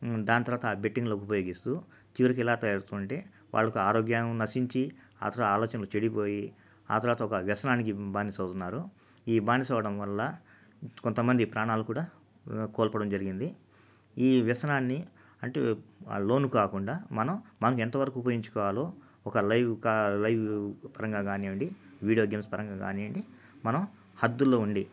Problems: constant background noise